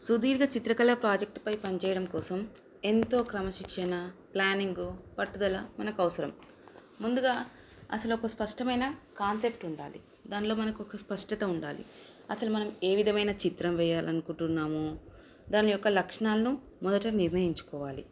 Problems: constant background noise